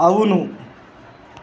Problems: constant background noise